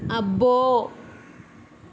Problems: constant background noise